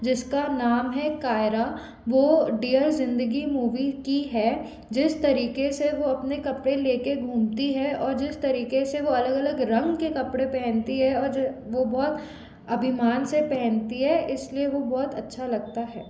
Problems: constant background noise